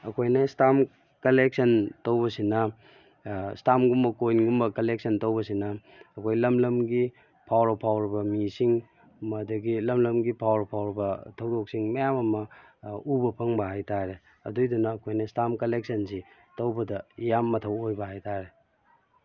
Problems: background sounds at intervals